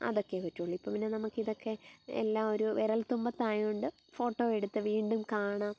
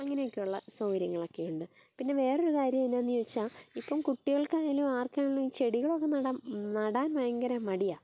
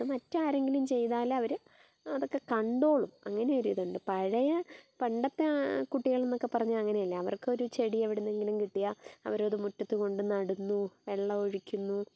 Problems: background sounds at intervals